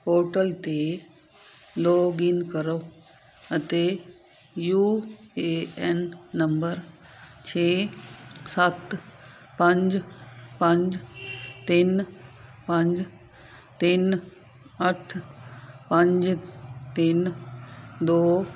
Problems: constant background noise